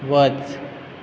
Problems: constant background noise